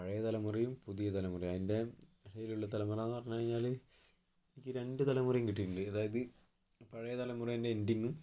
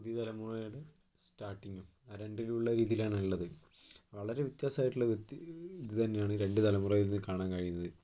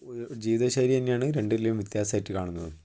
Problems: low volume